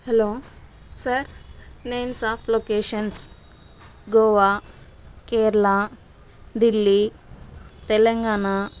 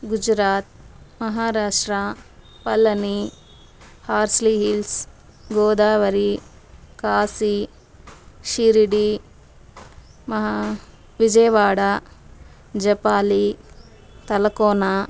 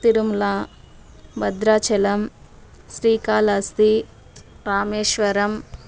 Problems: constant background noise